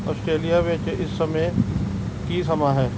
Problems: background sounds at intervals